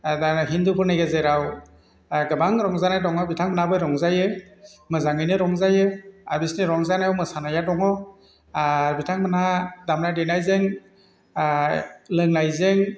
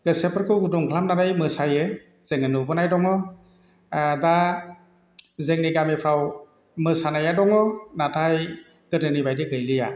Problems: none marked